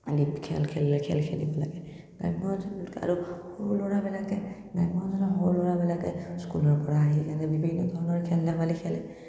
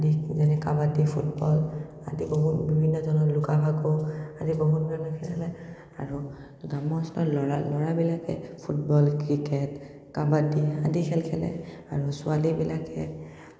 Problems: none marked